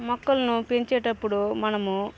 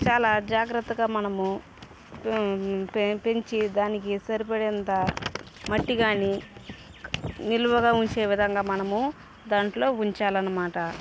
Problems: background sounds at intervals